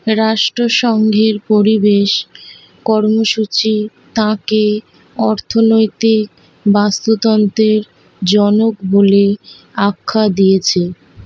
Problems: none marked